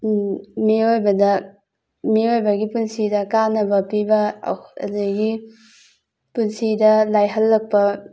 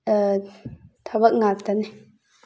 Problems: background sounds at intervals